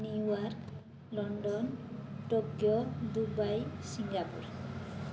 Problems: constant background noise